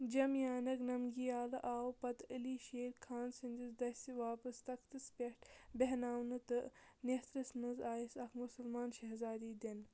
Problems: none marked